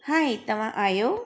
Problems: constant background noise, echo